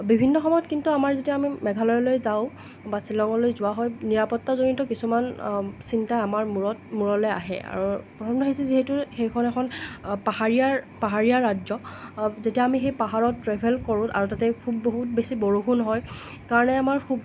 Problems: none marked